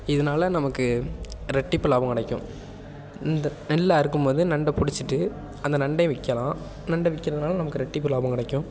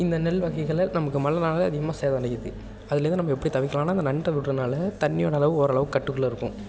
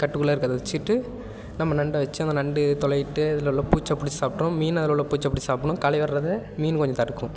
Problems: constant background noise